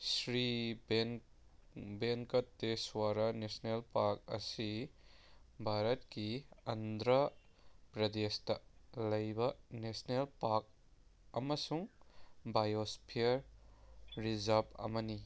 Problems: none marked